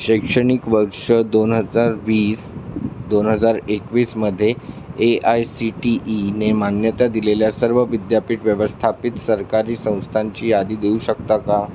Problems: constant background noise